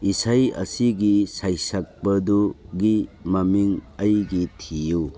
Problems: background sounds at intervals